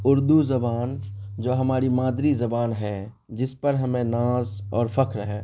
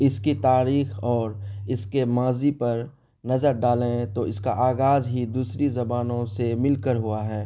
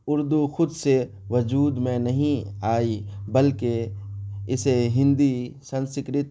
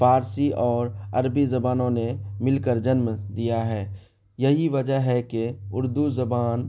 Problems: none marked